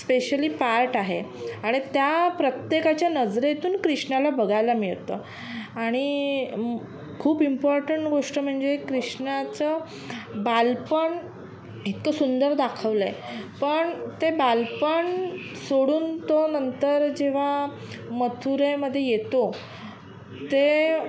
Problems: none marked